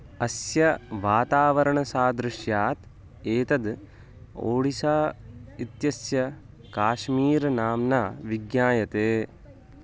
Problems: constant background noise